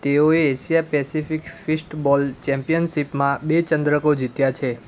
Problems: constant background noise